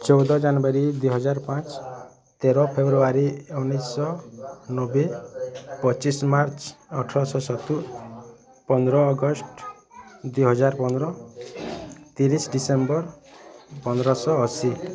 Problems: constant background noise, continuous background conversations